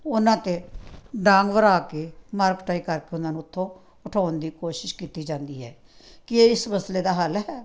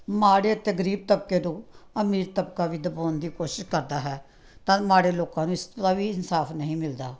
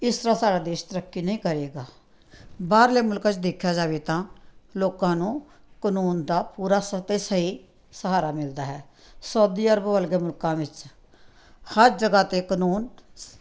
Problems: background sounds at intervals